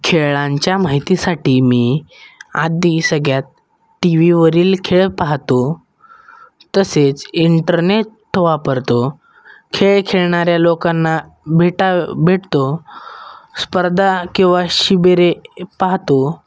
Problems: background sounds at intervals